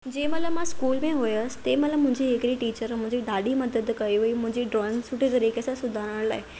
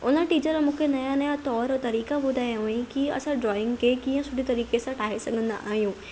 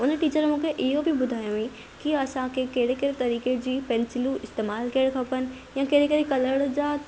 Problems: none marked